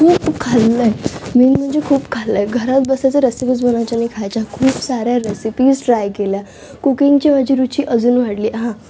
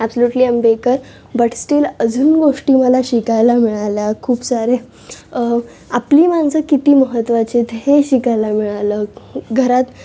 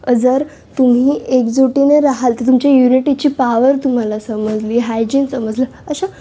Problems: constant background noise, continuous background conversations